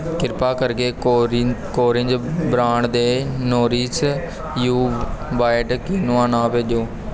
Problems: constant background noise